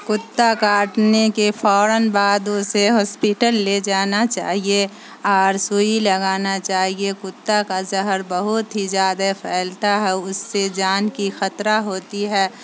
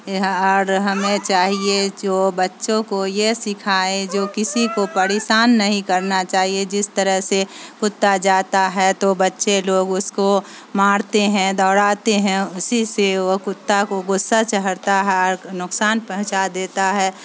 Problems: constant background noise